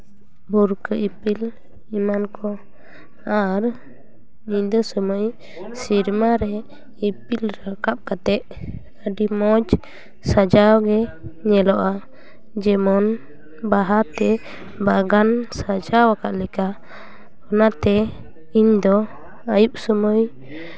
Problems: background sounds at intervals, continuous background conversations